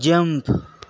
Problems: constant background noise